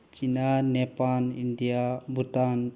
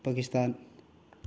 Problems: none marked